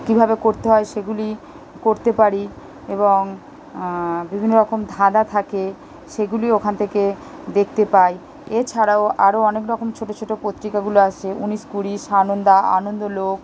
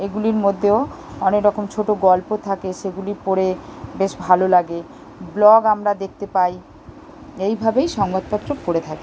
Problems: none marked